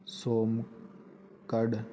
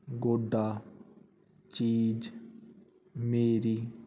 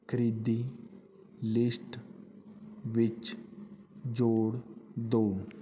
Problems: background sounds at intervals